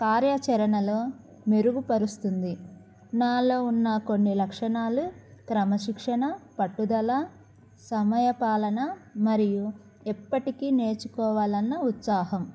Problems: none marked